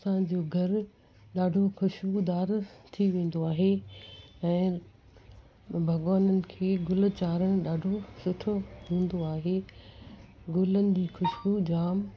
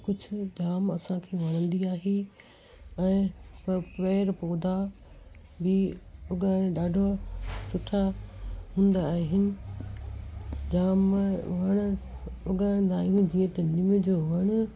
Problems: constant background noise